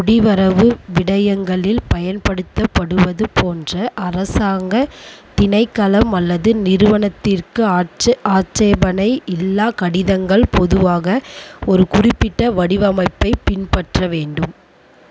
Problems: constant background noise